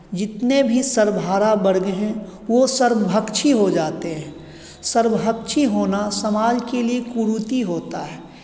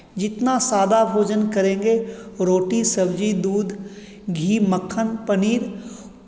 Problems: constant background noise